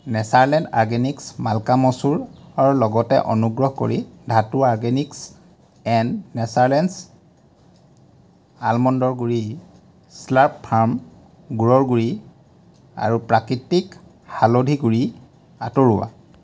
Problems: none marked